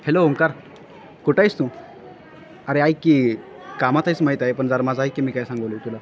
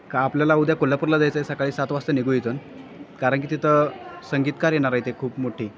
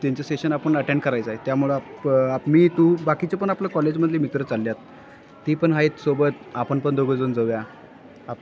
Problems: constant background noise